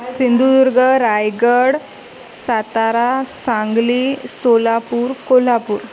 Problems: constant background noise, continuous background conversations